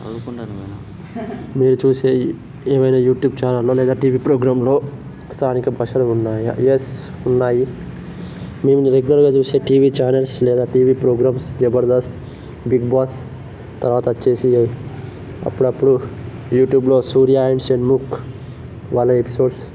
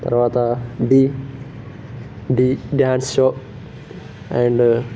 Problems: constant background noise